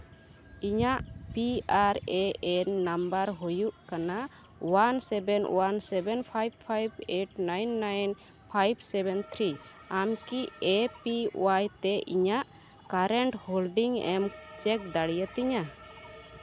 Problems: none marked